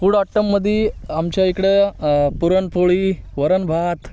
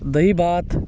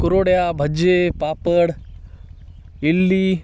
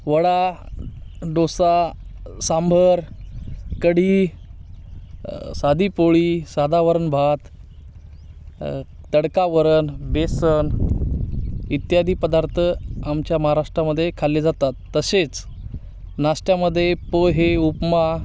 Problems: none marked